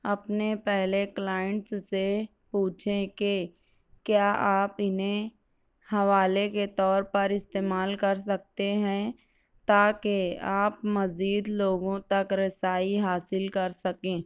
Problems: none marked